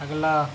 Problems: none marked